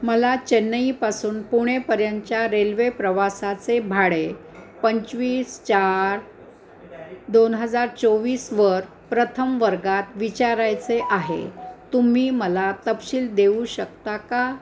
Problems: constant background noise, background conversations at intervals